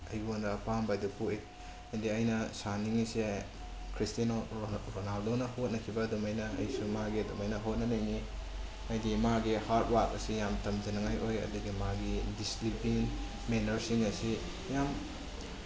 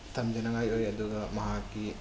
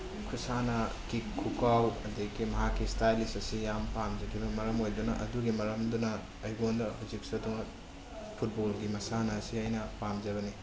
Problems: constant background noise